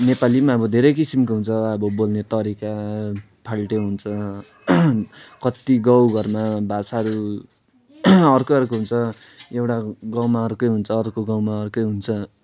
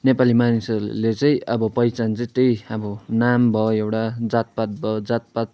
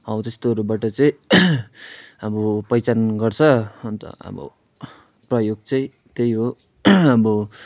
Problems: none marked